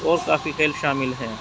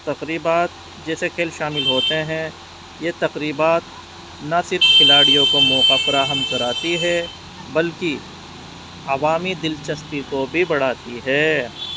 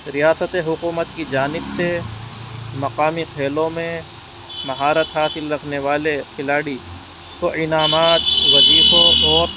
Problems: constant background noise